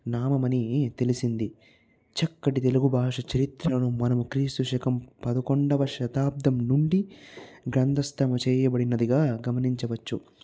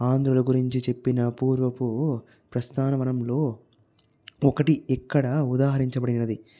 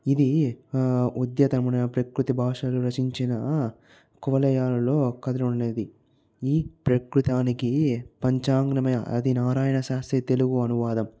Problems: low volume